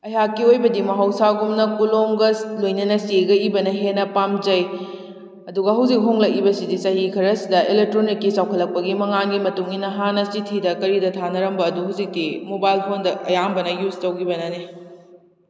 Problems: none marked